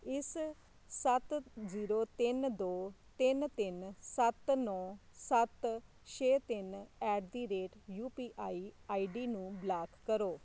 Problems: constant background noise